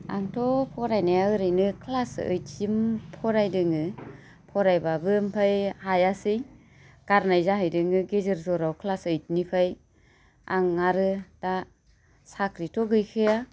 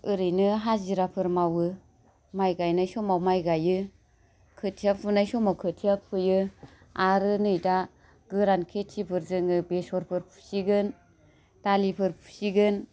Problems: none marked